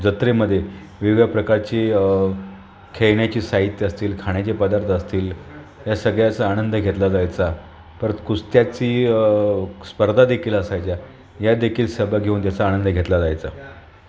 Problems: none marked